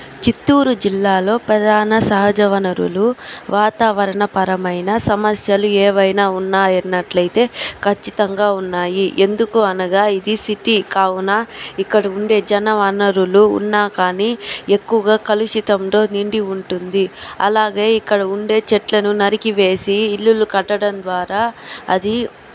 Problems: constant background noise